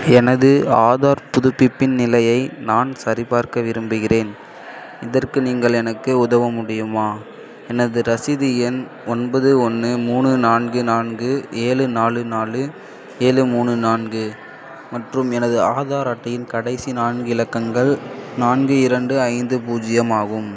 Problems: constant background noise